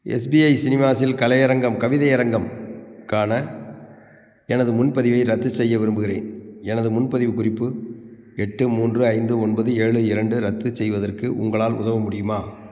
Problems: background sounds at intervals